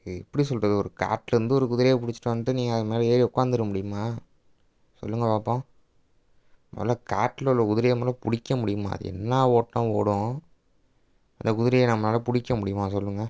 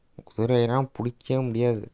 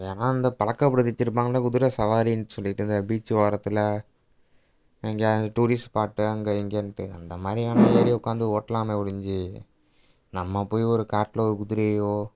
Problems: background sounds at intervals